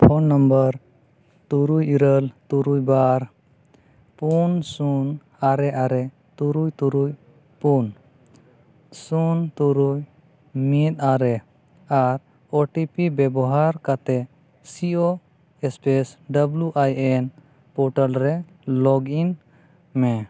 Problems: none marked